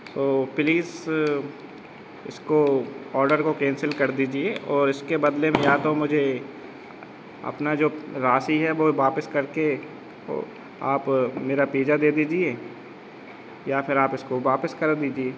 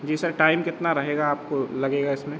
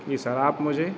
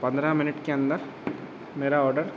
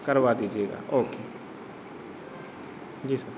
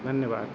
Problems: background sounds at intervals